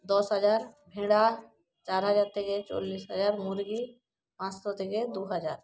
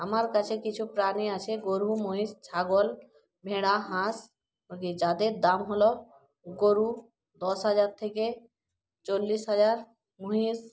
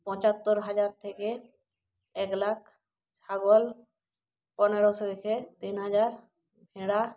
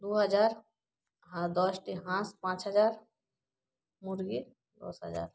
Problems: background conversations at intervals